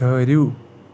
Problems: constant background noise